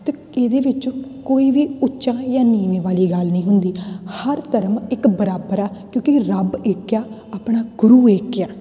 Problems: none marked